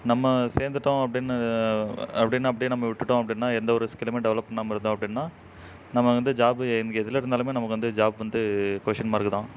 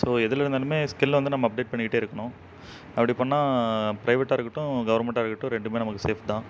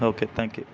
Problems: background sounds at intervals